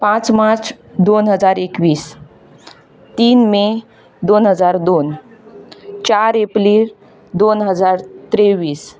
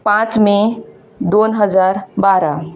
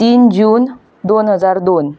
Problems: background sounds at intervals